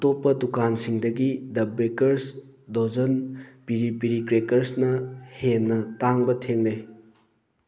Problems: background sounds at intervals